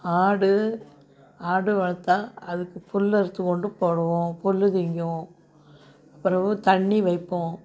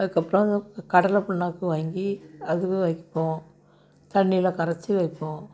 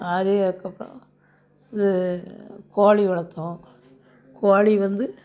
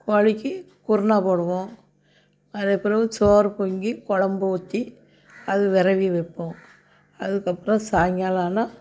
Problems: background sounds at intervals, background conversations at intervals